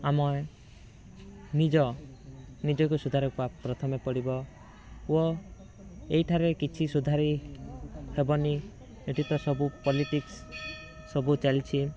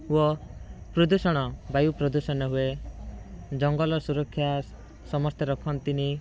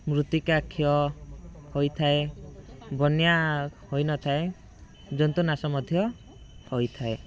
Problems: background sounds at intervals